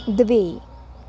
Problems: constant background noise